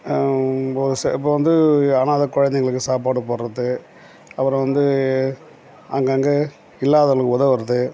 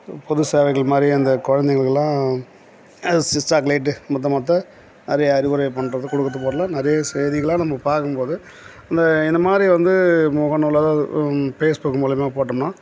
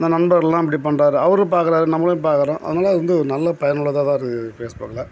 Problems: background sounds at intervals